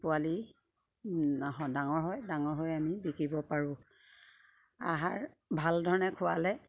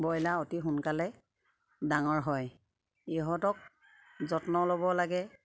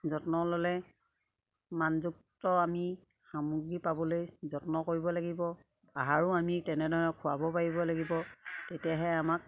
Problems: constant background noise, background conversations at intervals